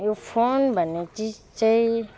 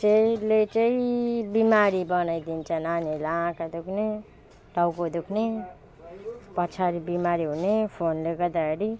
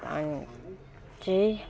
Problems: none marked